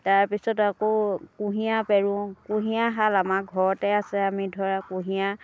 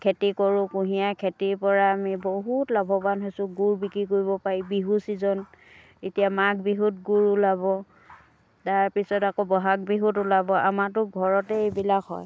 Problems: background sounds at intervals